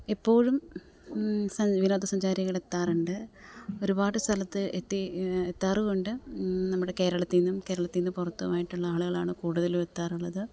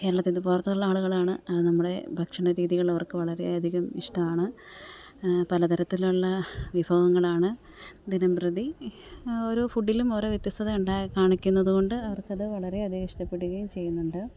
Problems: none marked